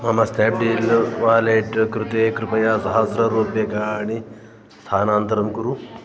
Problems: continuous background conversations